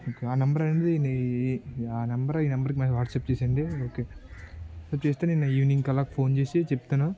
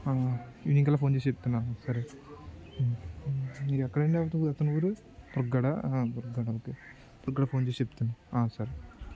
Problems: continuous background conversations